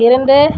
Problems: background sounds at intervals